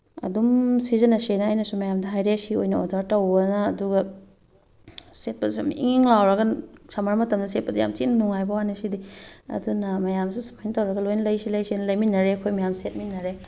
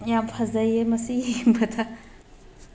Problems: background sounds at intervals